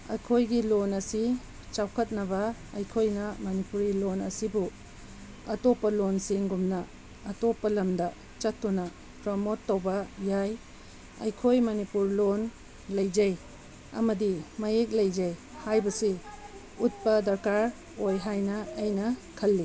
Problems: background sounds at intervals